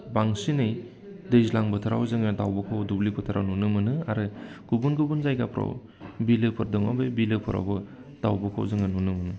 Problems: constant background noise